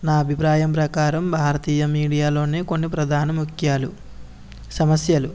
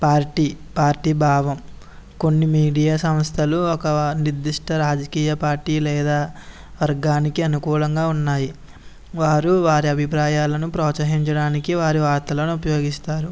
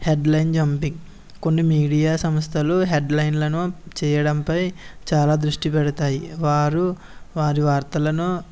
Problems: background sounds at intervals